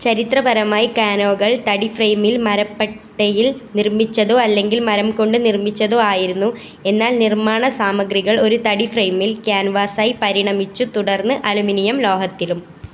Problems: constant background noise